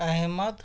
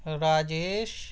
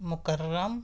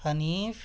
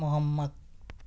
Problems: none marked